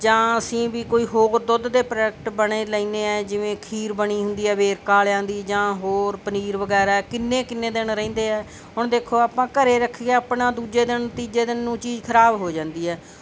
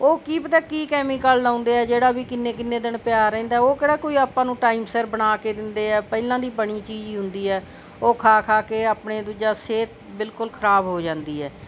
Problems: constant background noise